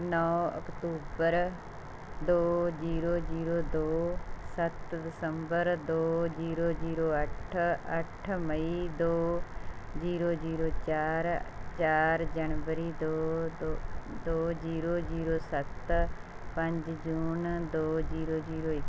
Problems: background sounds at intervals